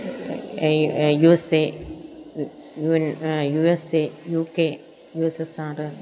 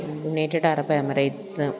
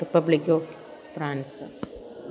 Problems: none marked